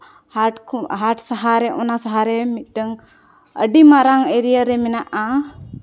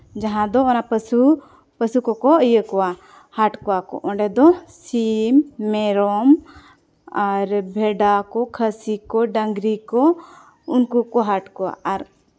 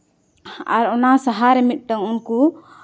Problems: none marked